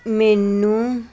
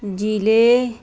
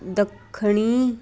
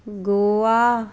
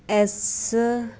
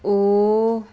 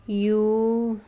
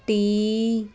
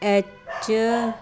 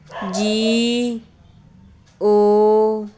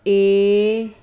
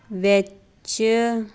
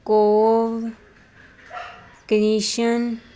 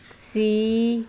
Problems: none marked